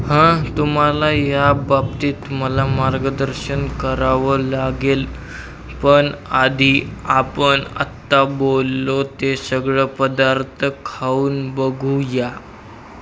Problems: constant background noise, continuous background conversations